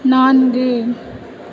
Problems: constant background noise